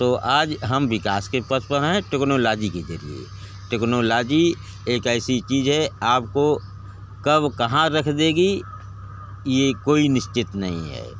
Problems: none marked